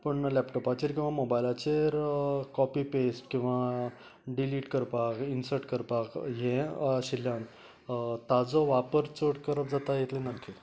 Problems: background sounds at intervals, background conversations at intervals